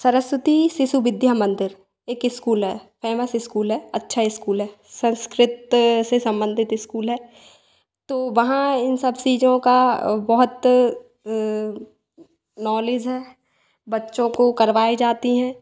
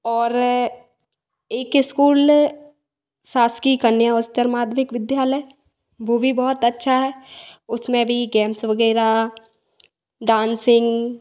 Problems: background sounds at intervals, echo